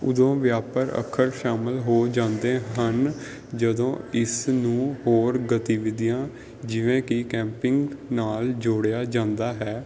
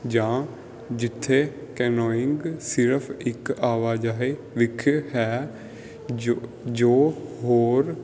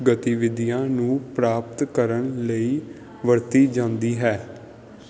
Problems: background sounds at intervals